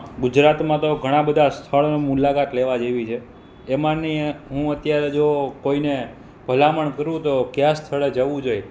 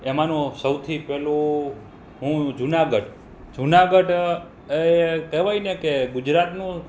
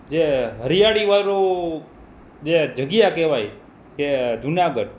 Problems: none marked